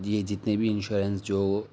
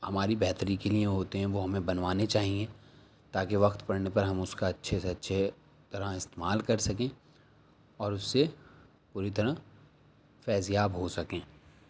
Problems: none marked